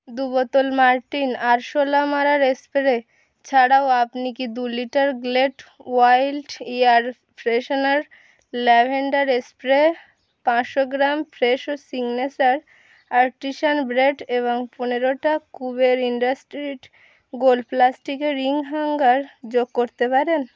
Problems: constant background noise